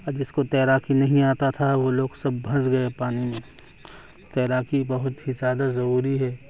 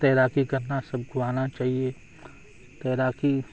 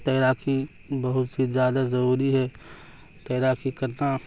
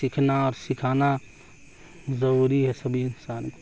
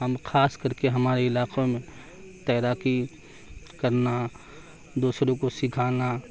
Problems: constant background noise, background conversations at intervals